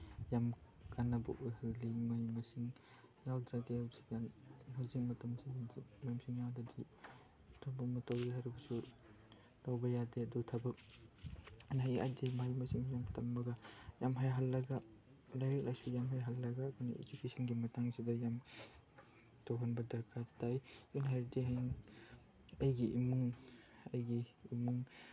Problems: background conversations at intervals, low volume